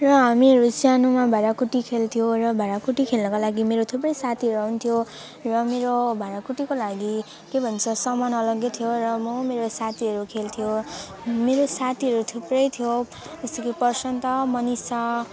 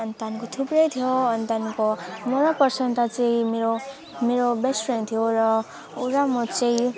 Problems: continuous background conversations